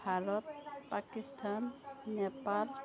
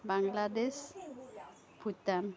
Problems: continuous background conversations